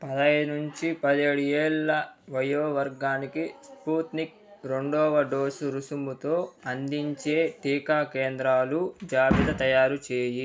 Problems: continuous background conversations